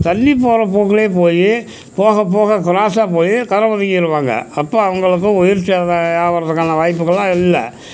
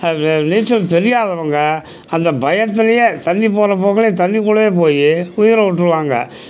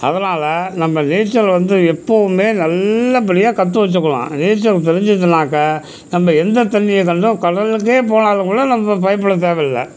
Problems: constant background noise